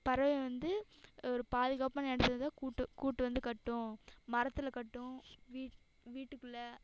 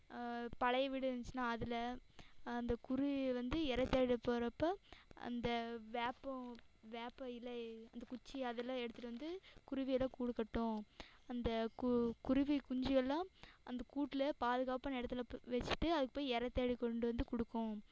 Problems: echo